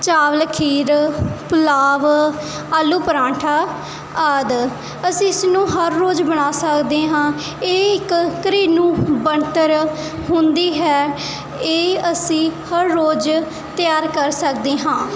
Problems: none marked